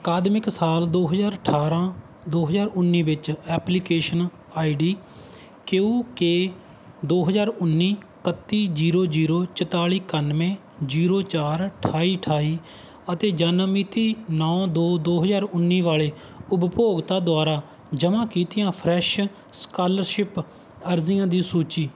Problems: background sounds at intervals